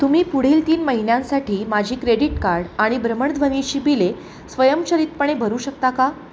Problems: none marked